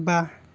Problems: constant background noise